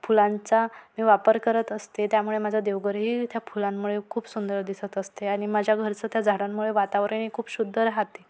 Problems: none marked